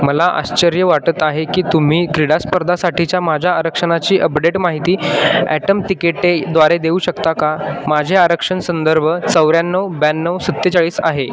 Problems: constant background noise, continuous background conversations